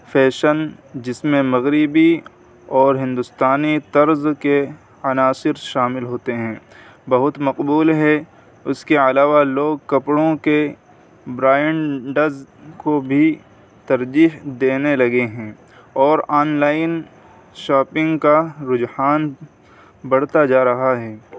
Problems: constant background noise